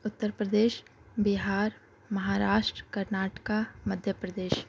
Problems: background sounds at intervals